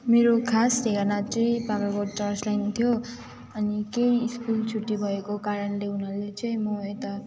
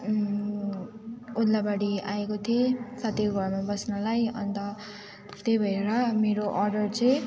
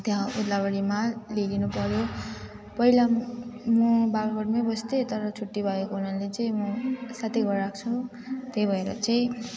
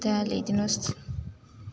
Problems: constant background noise